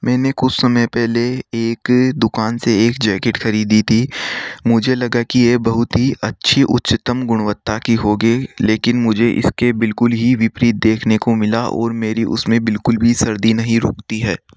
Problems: none marked